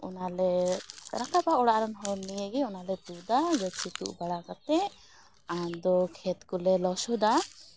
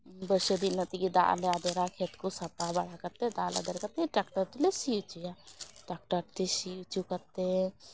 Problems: background sounds at intervals